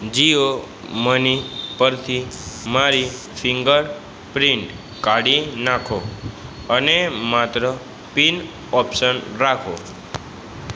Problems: background sounds at intervals